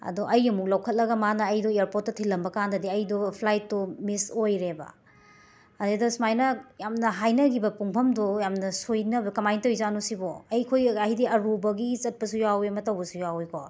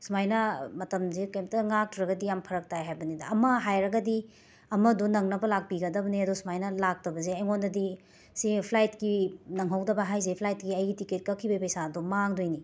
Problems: background sounds at intervals